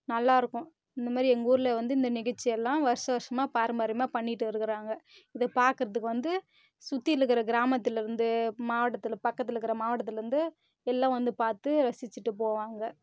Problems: none marked